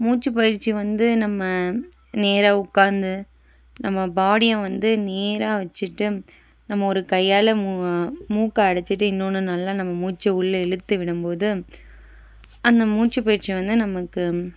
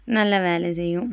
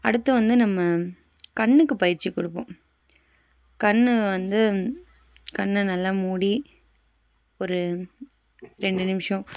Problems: background sounds at intervals